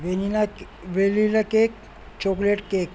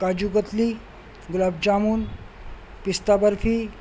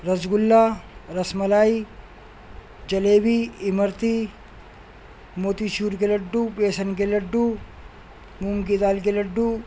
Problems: constant background noise